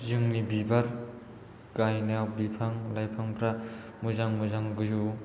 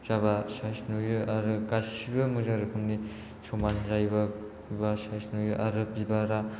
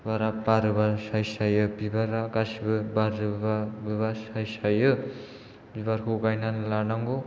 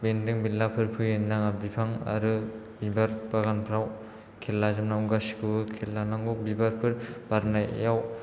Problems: low volume